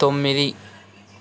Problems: constant background noise